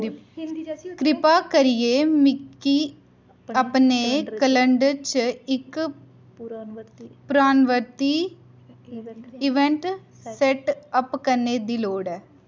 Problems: continuous background conversations